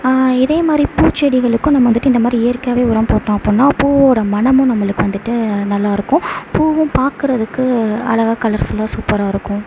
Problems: constant background noise